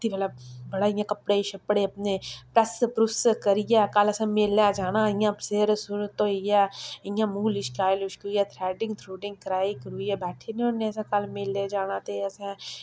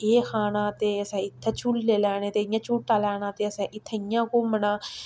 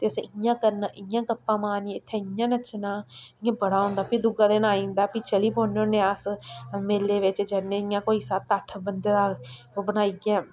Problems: none marked